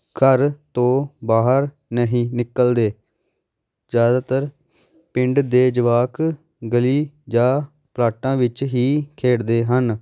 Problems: background sounds at intervals